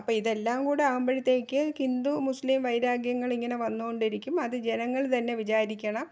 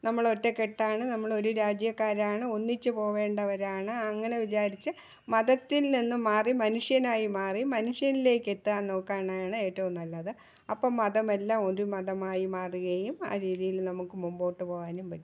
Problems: low volume